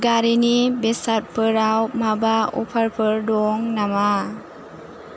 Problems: none marked